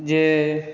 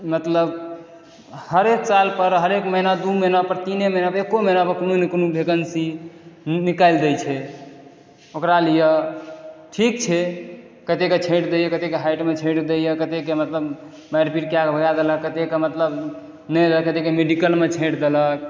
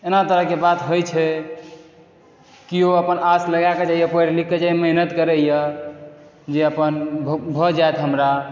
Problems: none marked